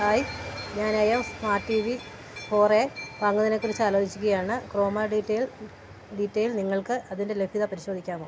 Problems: none marked